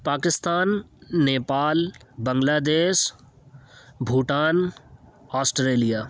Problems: background sounds at intervals